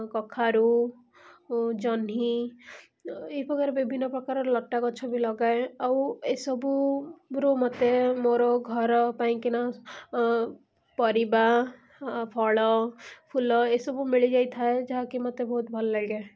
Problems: none marked